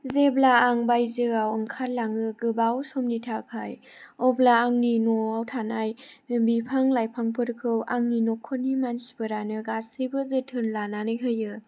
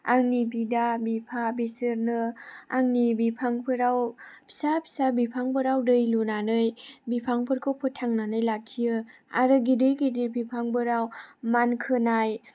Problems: none marked